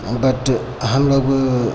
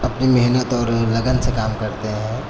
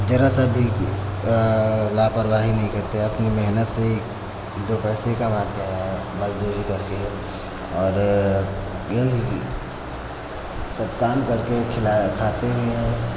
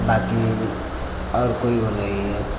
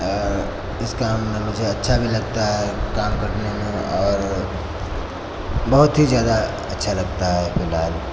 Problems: constant background noise